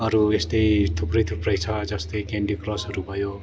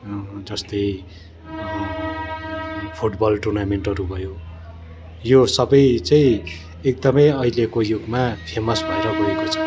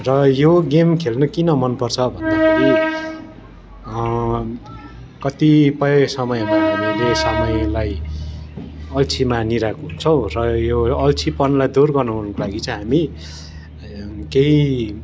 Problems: continuous background conversations